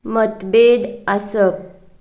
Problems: background sounds at intervals